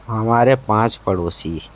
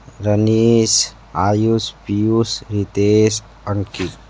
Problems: constant background noise